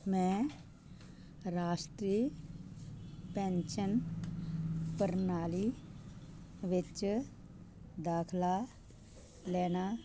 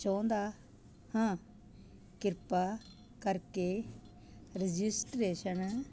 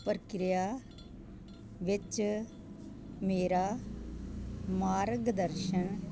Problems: constant background noise